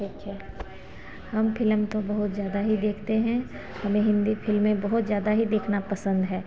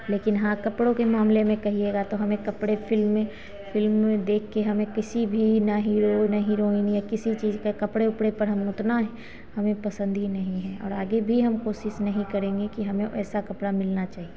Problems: constant background noise